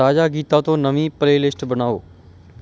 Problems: background sounds at intervals